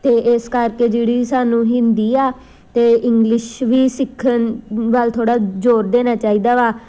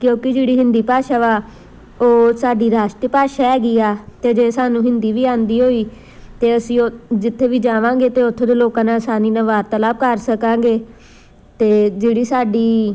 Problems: background sounds at intervals